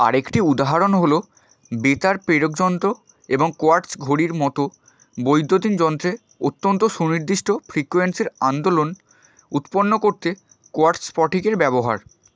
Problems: constant background noise